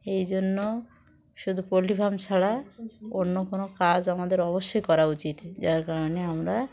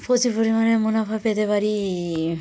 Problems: background sounds at intervals, background conversations at intervals